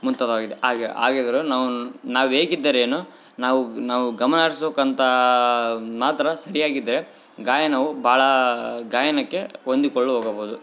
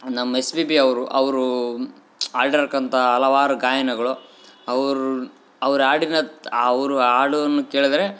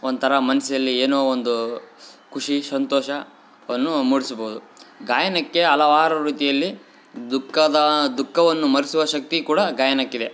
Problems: background sounds at intervals